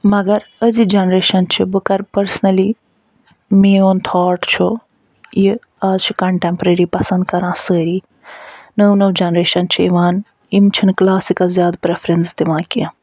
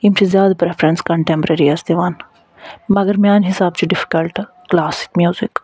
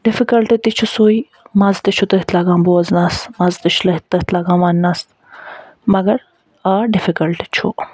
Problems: none marked